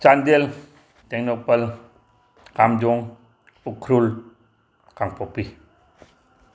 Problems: background sounds at intervals